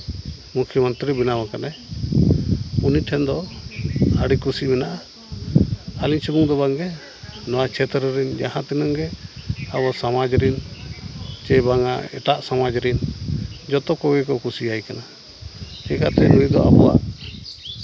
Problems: none marked